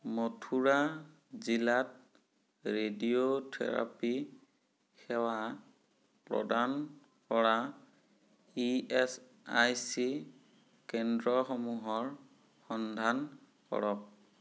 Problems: none marked